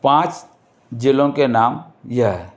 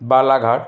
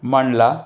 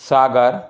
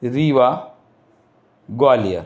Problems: constant background noise